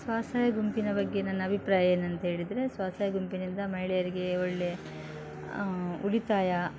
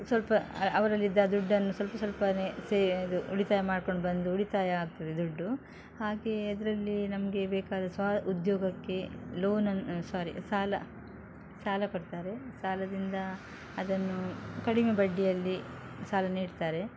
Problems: background sounds at intervals